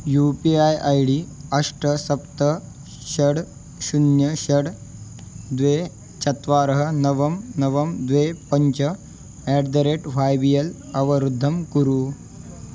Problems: constant background noise